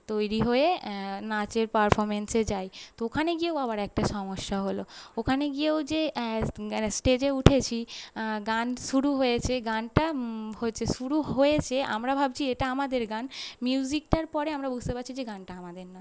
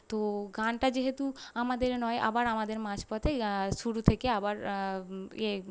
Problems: none marked